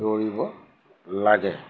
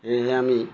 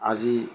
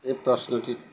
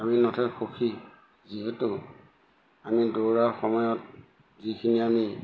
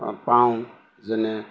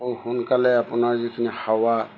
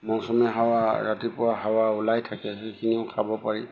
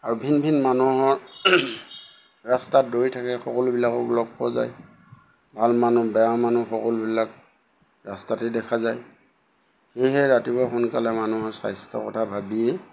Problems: background sounds at intervals